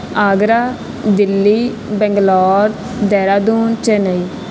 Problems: constant background noise